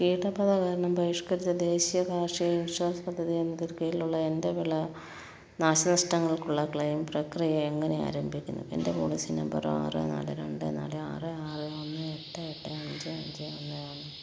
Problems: background sounds at intervals, low volume